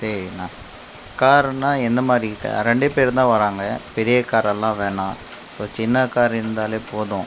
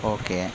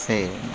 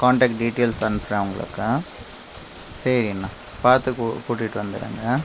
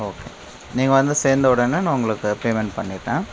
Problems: constant background noise